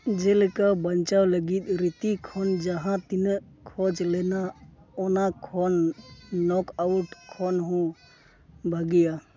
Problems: constant background noise